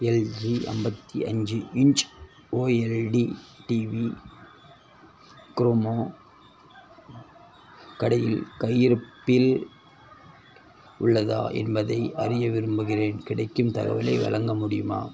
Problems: constant background noise, background conversations at intervals